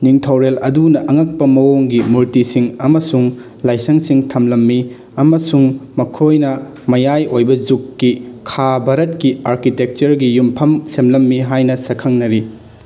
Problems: background sounds at intervals